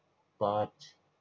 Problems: constant background noise, low volume